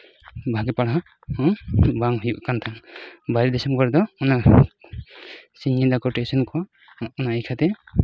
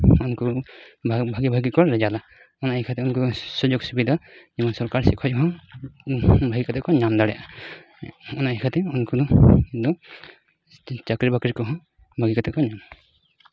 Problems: constant background noise